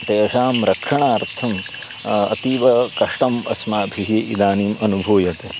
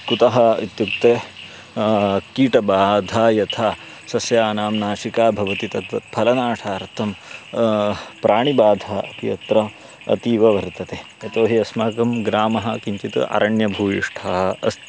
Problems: constant background noise